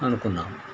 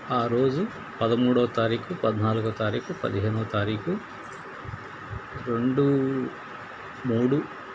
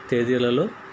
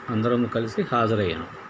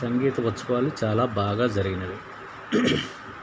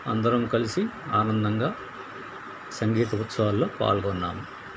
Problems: constant background noise